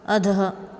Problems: none marked